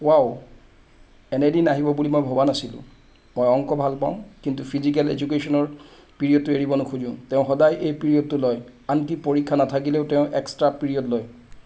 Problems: constant background noise